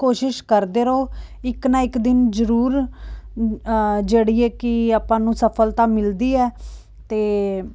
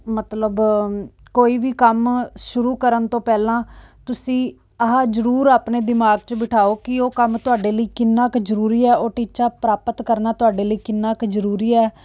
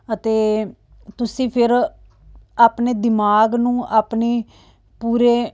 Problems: none marked